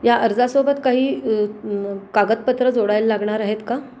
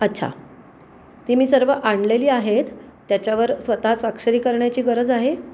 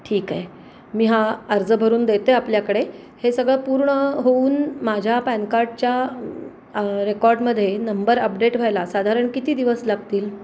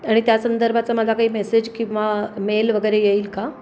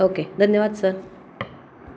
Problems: constant background noise